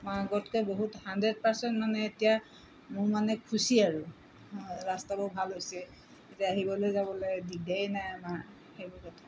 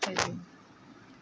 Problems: constant background noise